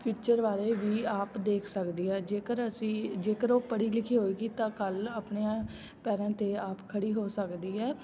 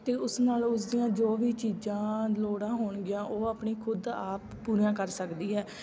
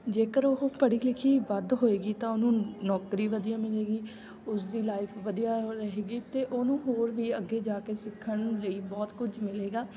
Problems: constant background noise, background conversations at intervals